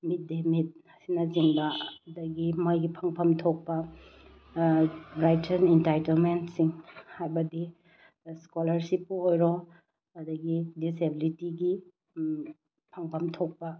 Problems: low volume